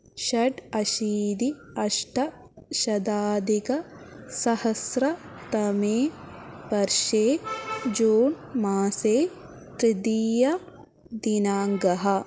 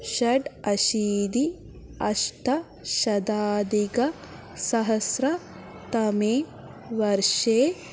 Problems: none marked